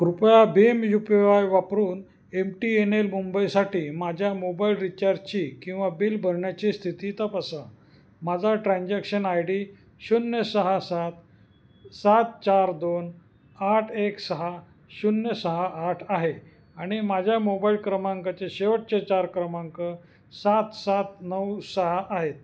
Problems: constant background noise, echo